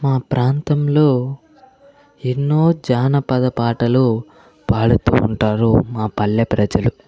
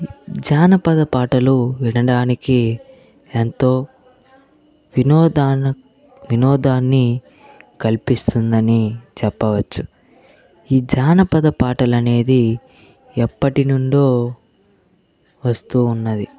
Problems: constant background noise, background conversations at intervals